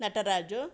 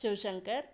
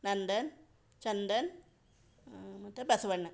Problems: none marked